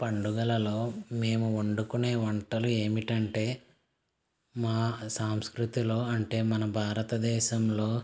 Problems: constant background noise